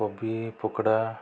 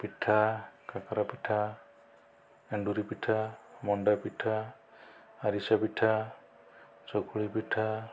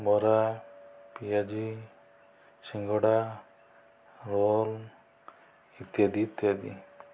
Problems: low volume